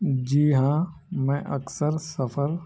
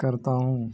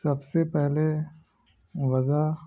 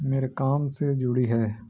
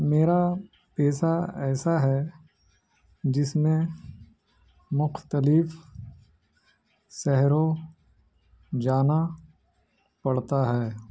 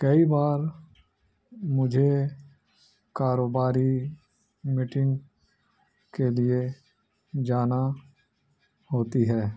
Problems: background sounds at intervals